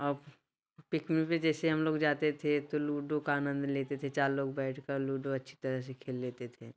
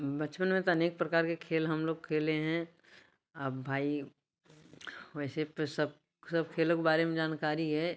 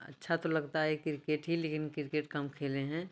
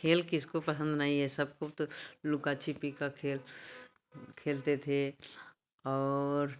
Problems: background sounds at intervals, background conversations at intervals